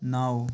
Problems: none marked